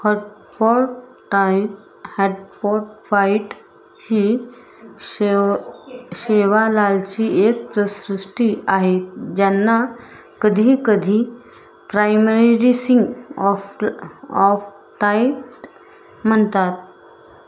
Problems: constant background noise